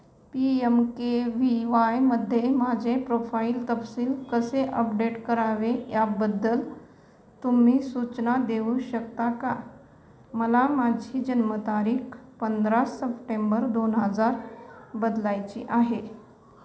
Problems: background sounds at intervals